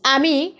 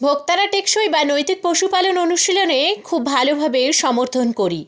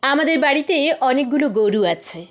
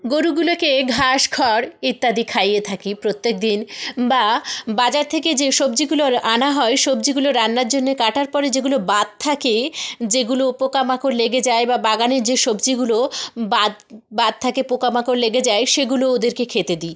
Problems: background sounds at intervals